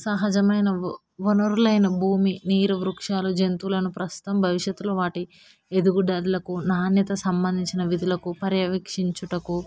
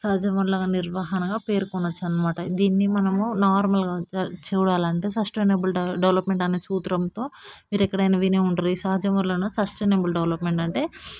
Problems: none marked